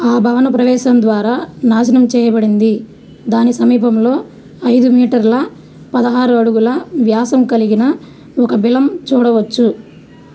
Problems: constant background noise